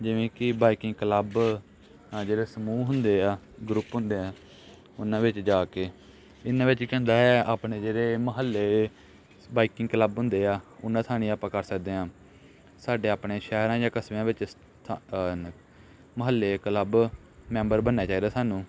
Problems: constant background noise, background conversations at intervals